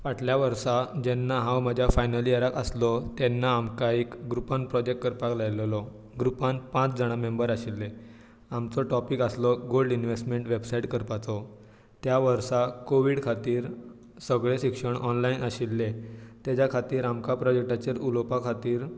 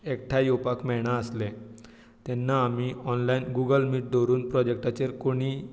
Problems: none marked